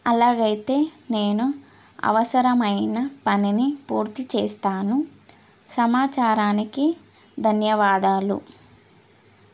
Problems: none marked